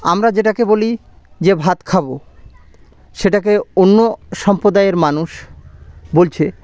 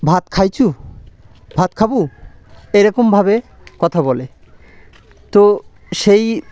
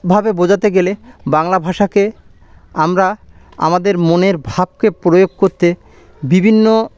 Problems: background sounds at intervals